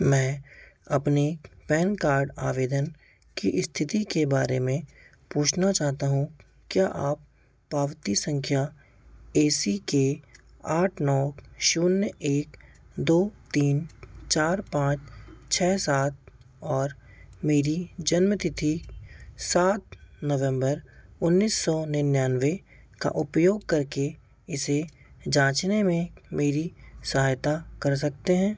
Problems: background sounds at intervals